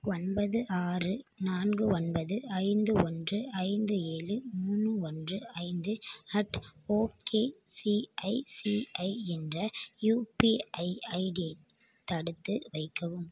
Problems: none marked